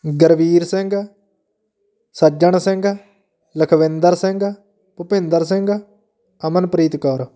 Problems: continuous background conversations